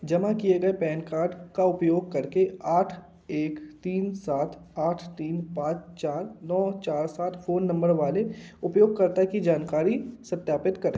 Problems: constant background noise